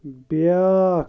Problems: constant background noise